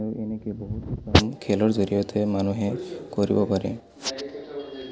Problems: background sounds at intervals, background conversations at intervals